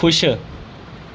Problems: none marked